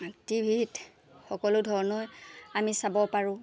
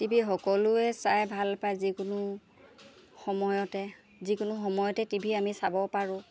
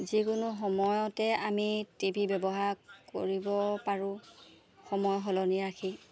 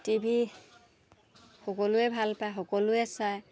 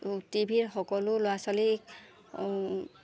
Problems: none marked